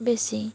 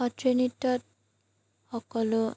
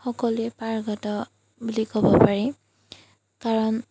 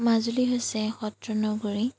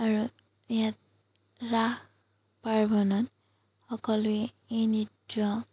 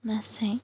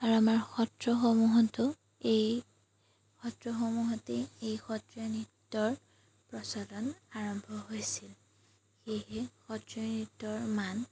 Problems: background sounds at intervals